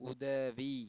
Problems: low volume